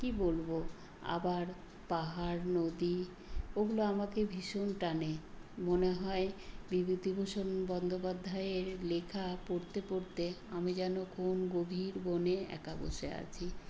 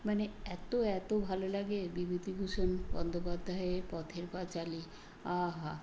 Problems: constant background noise